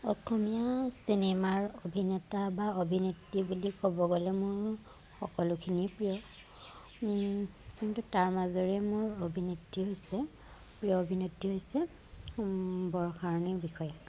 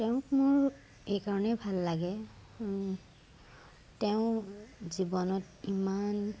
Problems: none marked